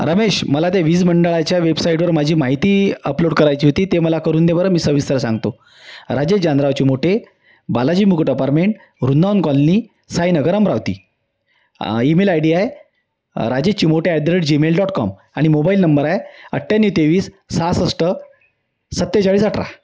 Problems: constant background noise